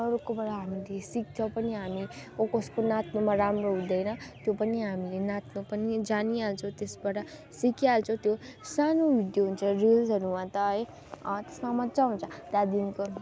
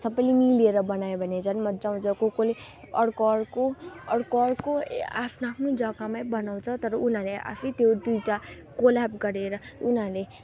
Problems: constant background noise, continuous background conversations